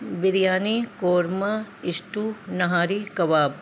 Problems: constant background noise